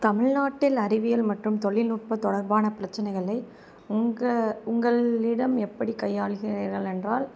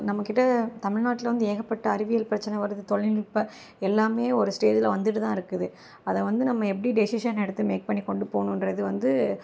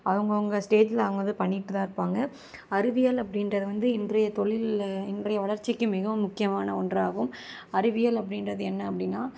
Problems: constant background noise